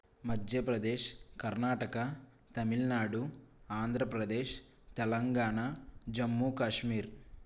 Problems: none marked